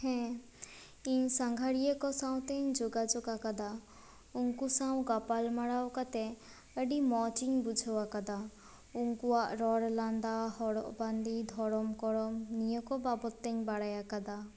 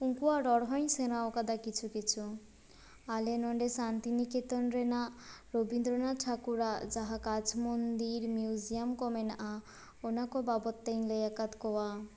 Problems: constant background noise